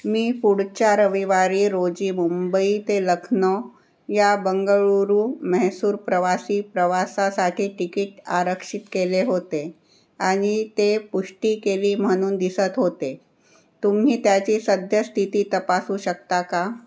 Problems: none marked